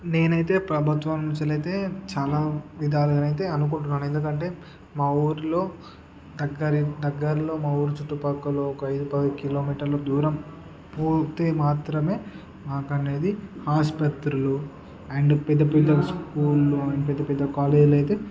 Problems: none marked